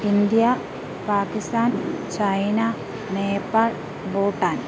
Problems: constant background noise